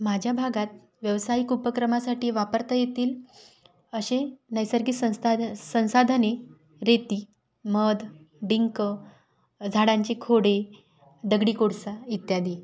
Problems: background sounds at intervals